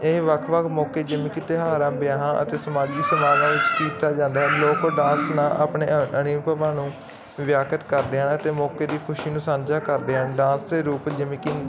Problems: constant background noise, continuous background conversations